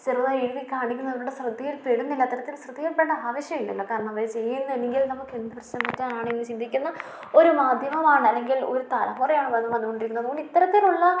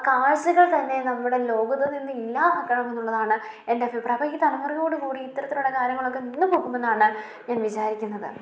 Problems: none marked